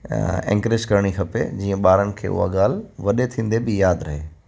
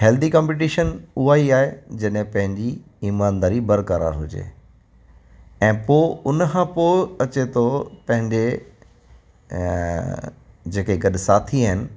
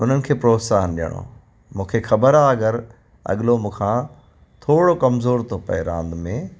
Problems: constant background noise, echo